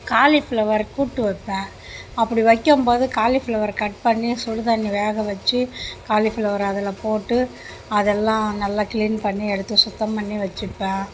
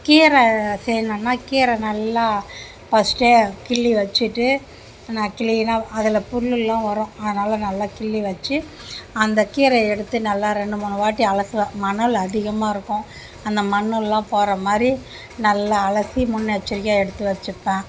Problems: none marked